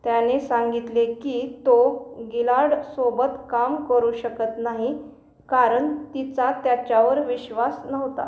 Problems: constant background noise